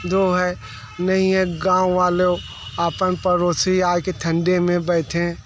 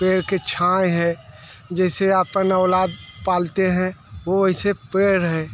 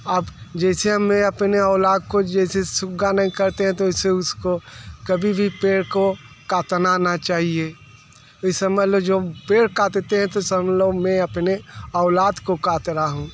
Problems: background sounds at intervals